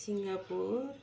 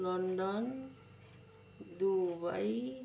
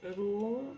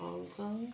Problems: low volume